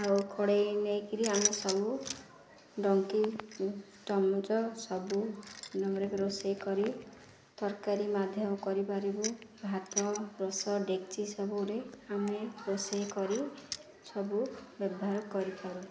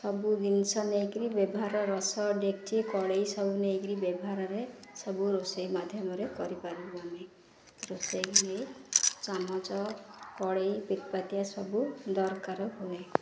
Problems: constant background noise, continuous background conversations